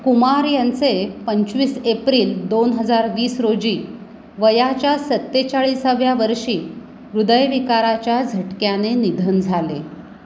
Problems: constant background noise